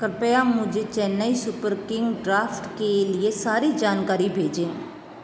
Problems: constant background noise